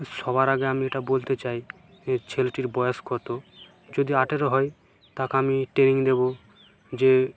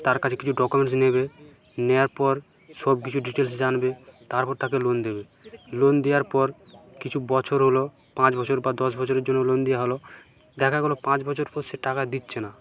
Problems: background sounds at intervals, background conversations at intervals